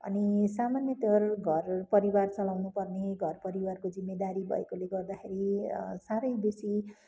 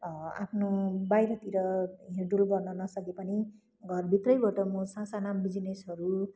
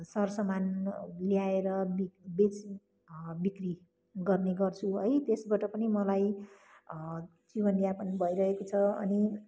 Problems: constant background noise